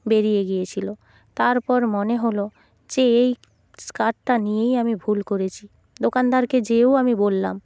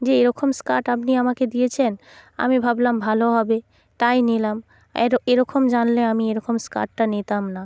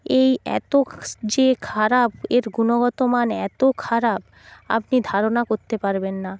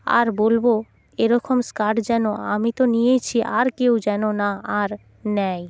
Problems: constant background noise